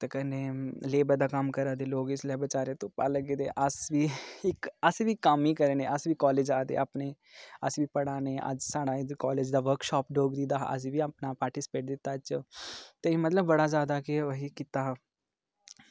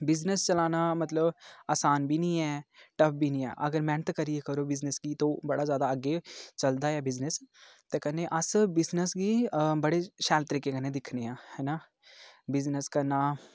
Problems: low volume